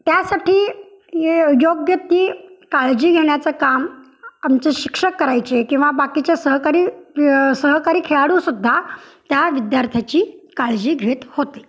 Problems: background sounds at intervals